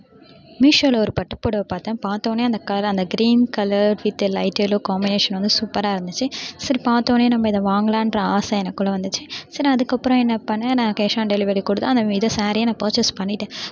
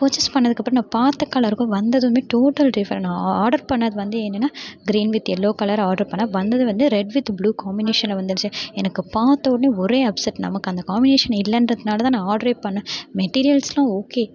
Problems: constant background noise, background conversations at intervals